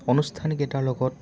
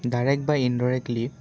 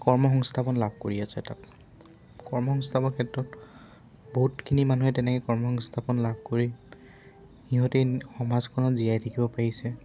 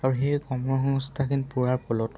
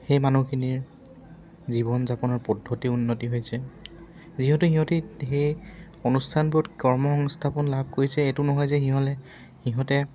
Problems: background sounds at intervals